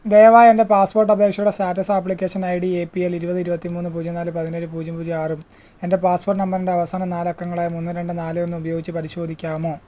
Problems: none marked